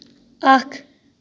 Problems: none marked